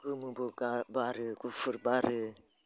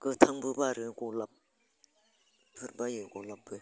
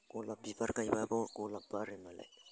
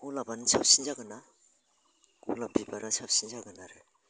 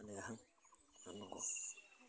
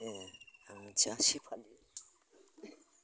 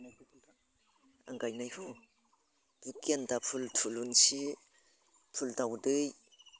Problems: constant background noise